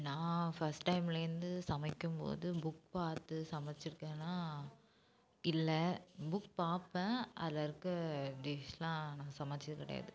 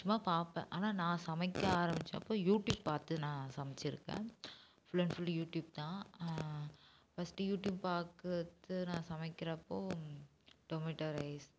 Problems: low volume